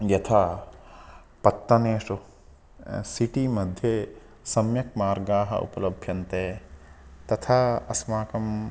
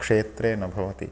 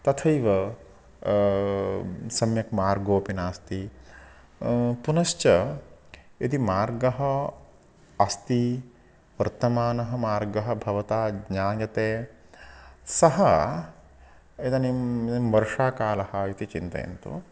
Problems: none marked